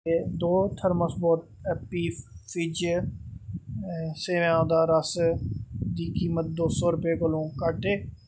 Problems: background sounds at intervals